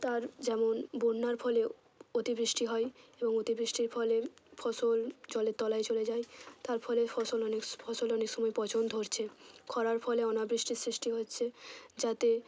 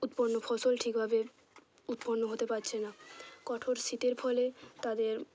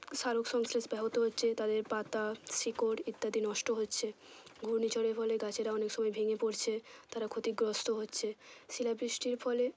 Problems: none marked